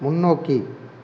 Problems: none marked